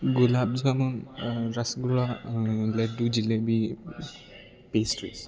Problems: constant background noise